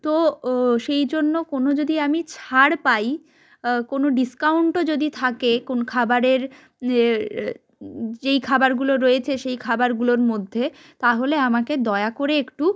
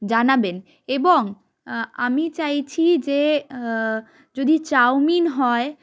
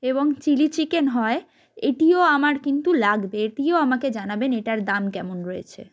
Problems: background sounds at intervals, continuous background conversations